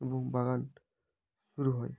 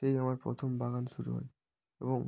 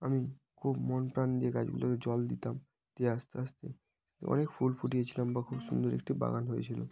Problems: background sounds at intervals, background conversations at intervals